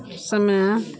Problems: none marked